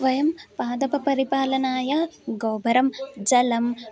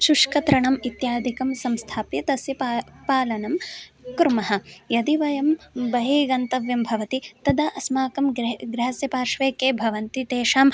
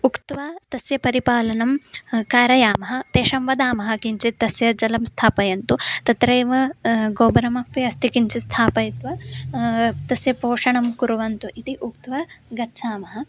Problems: constant background noise